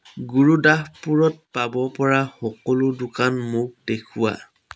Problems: constant background noise